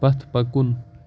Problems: none marked